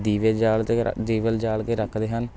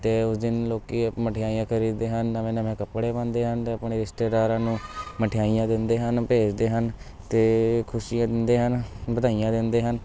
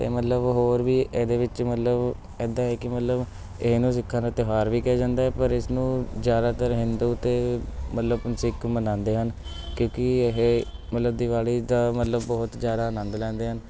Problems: constant background noise, continuous background conversations